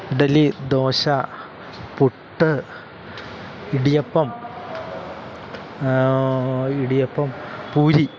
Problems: constant background noise